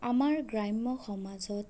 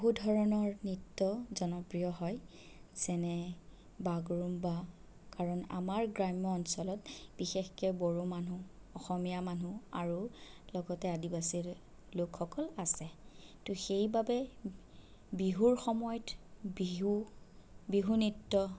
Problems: none marked